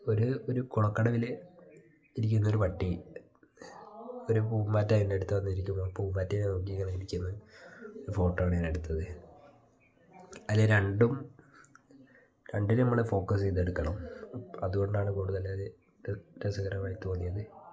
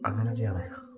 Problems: background sounds at intervals